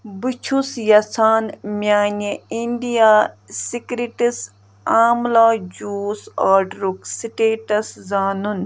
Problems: none marked